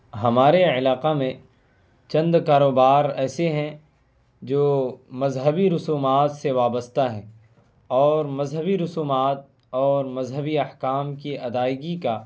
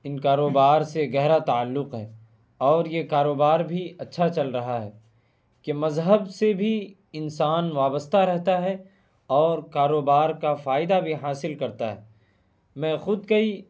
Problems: none marked